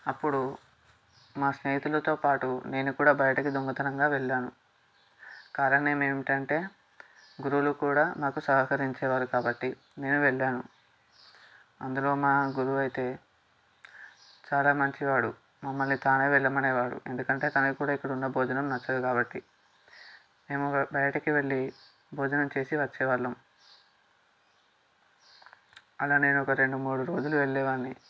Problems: background sounds at intervals